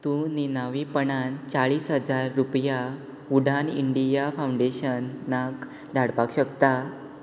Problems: constant background noise